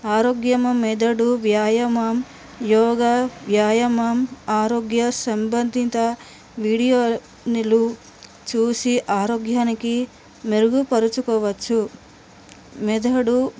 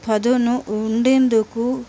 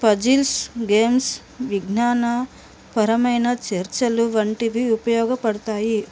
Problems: constant background noise